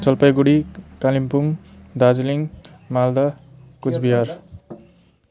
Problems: none marked